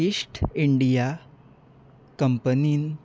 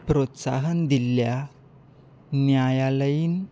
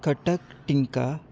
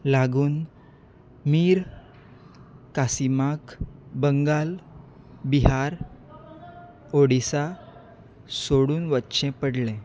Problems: none marked